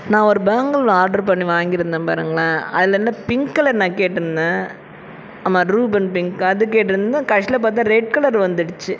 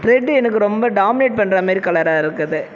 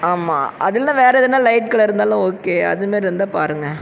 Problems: constant background noise